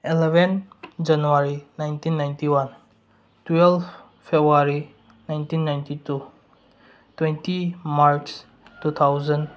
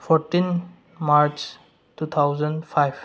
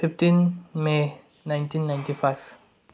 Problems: none marked